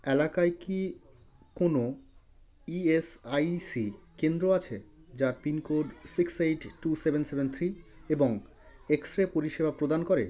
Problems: background conversations at intervals